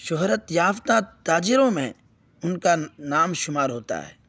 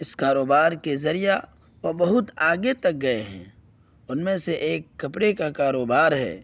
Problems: none marked